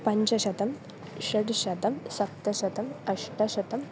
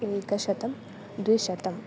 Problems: constant background noise